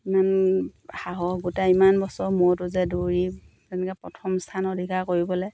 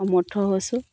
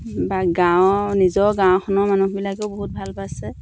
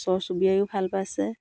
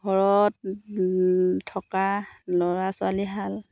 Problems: none marked